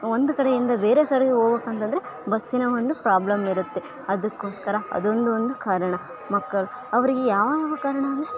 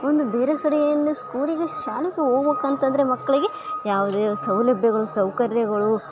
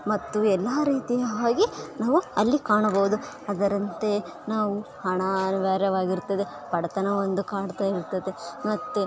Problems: constant background noise